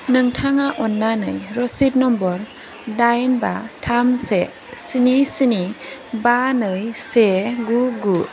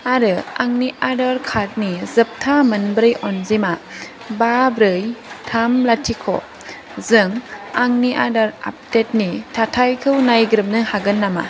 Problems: constant background noise